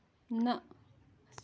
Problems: none marked